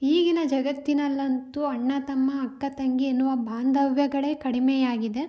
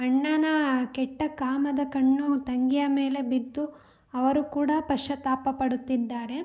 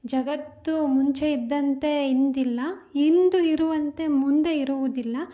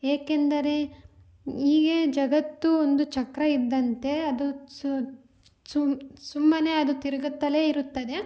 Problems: none marked